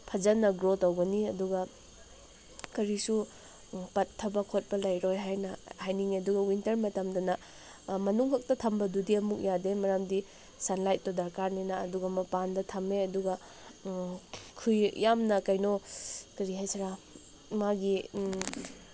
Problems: constant background noise